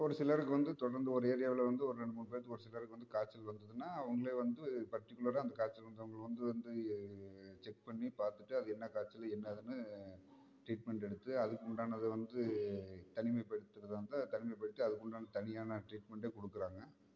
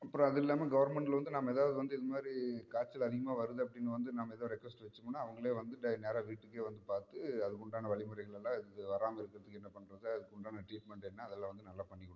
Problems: low volume